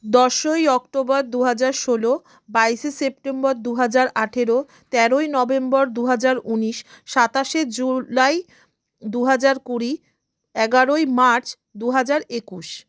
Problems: background sounds at intervals